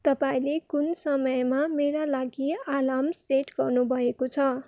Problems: none marked